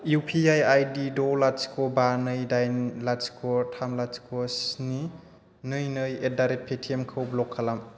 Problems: constant background noise